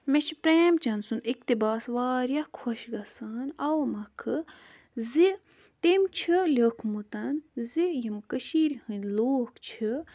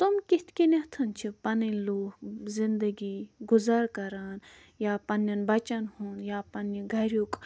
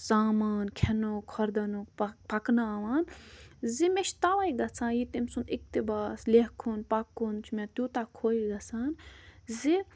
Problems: none marked